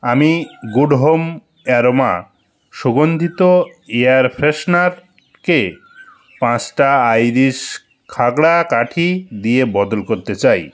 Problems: none marked